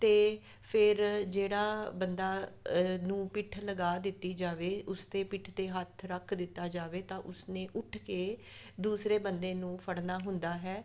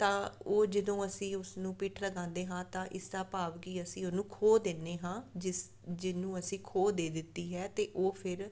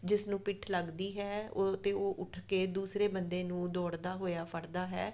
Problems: none marked